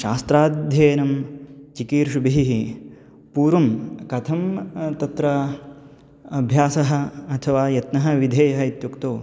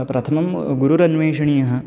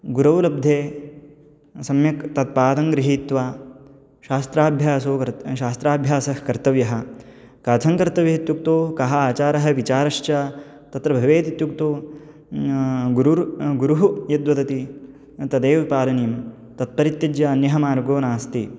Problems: background sounds at intervals